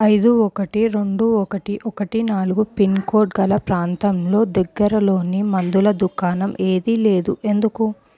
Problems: none marked